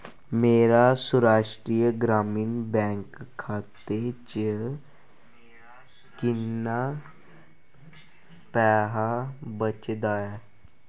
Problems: constant background noise